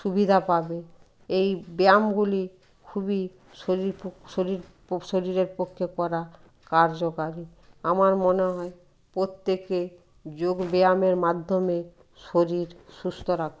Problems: background sounds at intervals